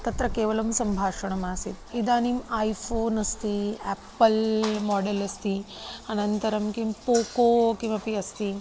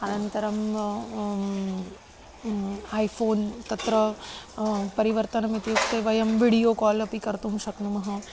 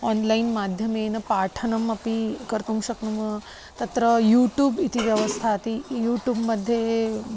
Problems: constant background noise, background conversations at intervals